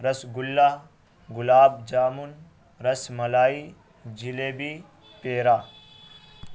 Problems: constant background noise